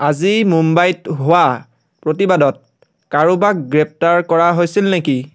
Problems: background sounds at intervals